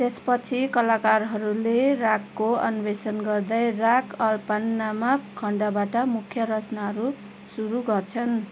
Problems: constant background noise